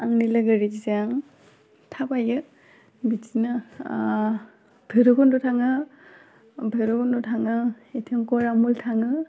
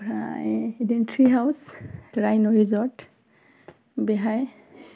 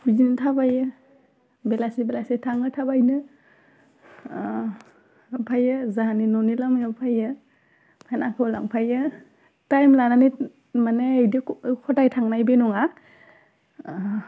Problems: constant background noise